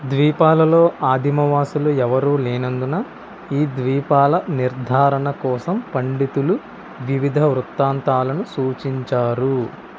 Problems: constant background noise